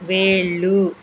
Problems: none marked